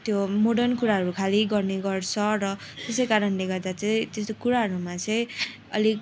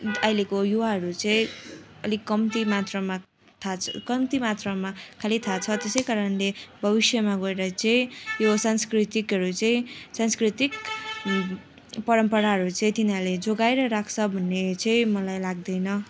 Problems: constant background noise, continuous background conversations